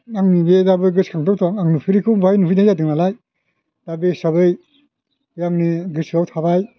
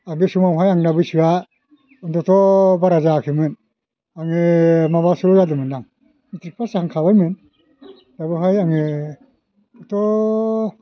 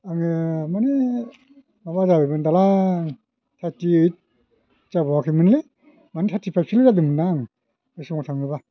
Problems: none marked